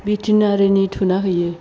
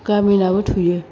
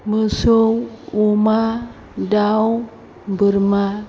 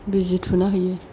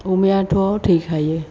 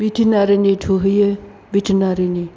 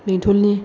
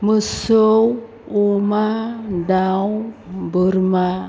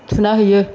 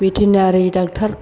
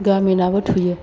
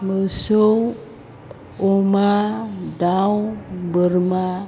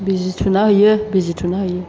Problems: constant background noise